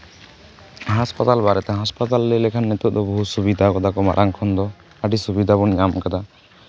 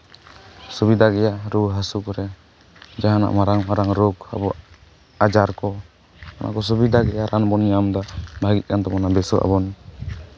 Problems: constant background noise, background conversations at intervals